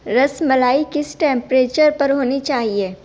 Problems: constant background noise